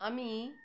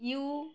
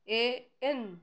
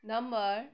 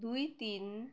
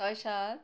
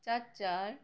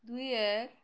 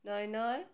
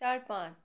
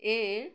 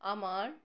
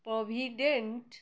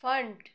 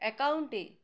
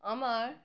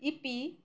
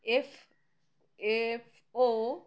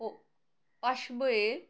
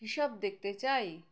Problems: background sounds at intervals